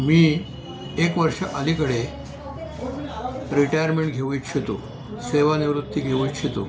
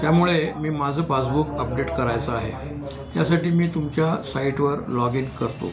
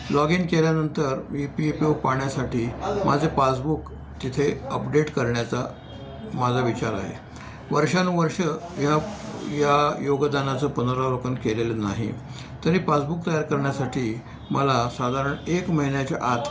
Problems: background conversations at intervals